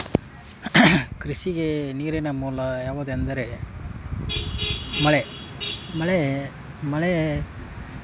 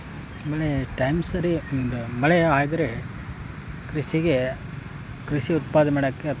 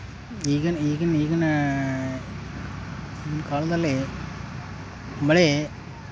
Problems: background sounds at intervals